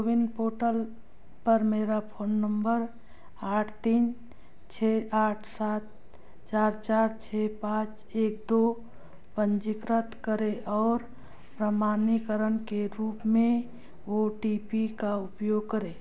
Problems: background sounds at intervals